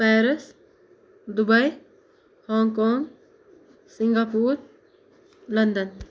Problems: none marked